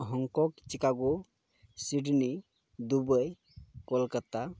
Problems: none marked